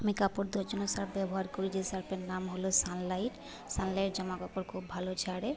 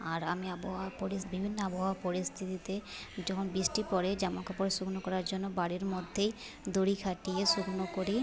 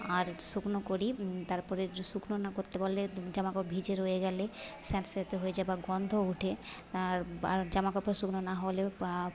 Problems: background conversations at intervals